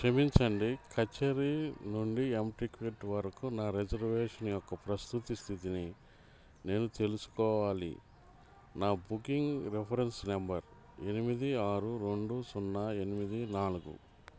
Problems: none marked